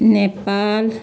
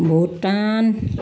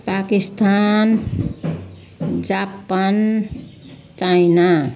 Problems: background conversations at intervals